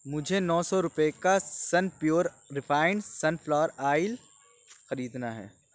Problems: none marked